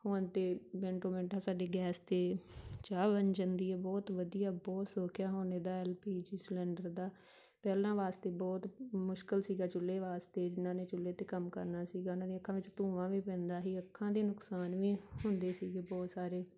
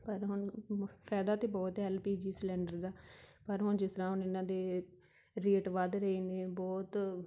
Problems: background sounds at intervals